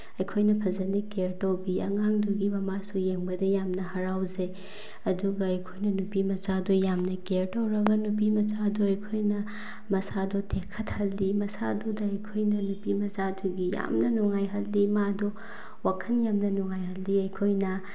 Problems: none marked